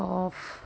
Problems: none marked